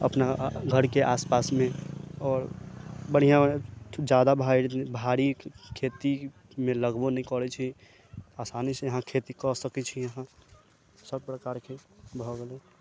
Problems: low volume